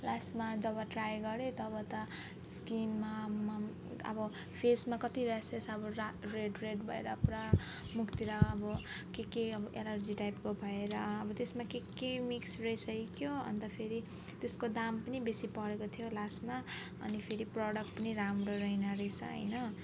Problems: background sounds at intervals